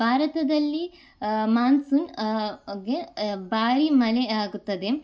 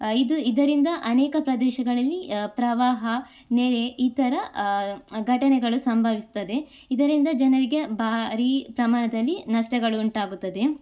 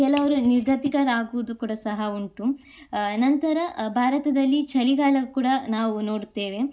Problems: none marked